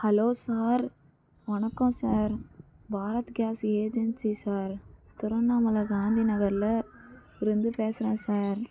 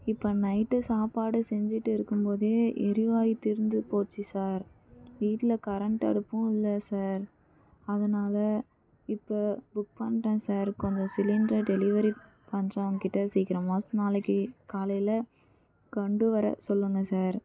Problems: low volume